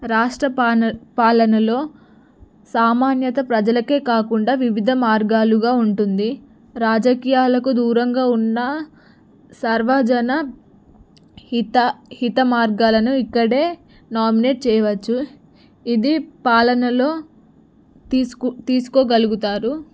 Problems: none marked